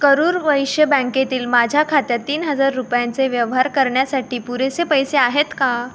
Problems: background sounds at intervals